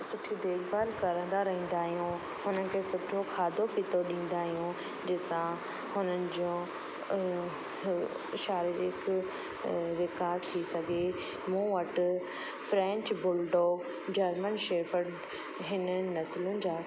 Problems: constant background noise, echo